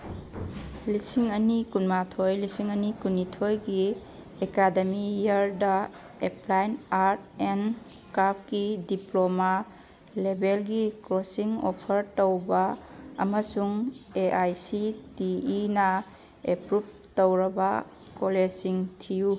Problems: none marked